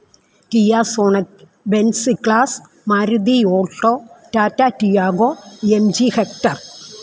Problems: constant background noise